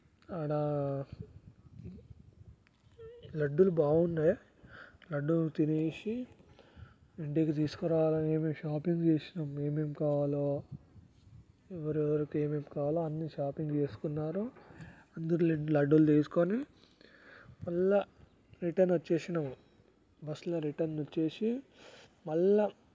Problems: background sounds at intervals, low volume